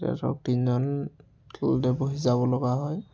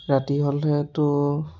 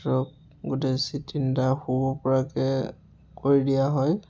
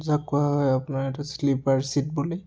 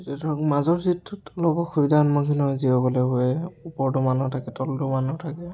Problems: none marked